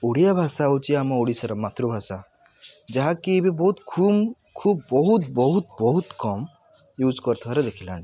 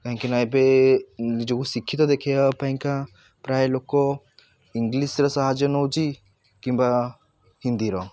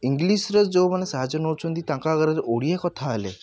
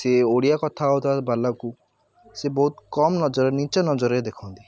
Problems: constant background noise, continuous background conversations